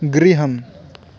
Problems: constant background noise